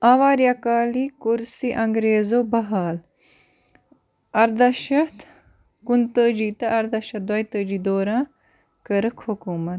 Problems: constant background noise